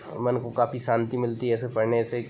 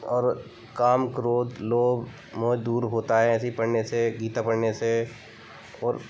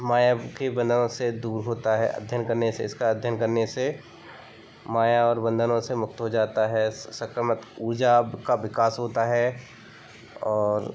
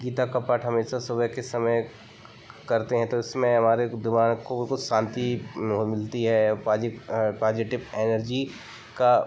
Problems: constant background noise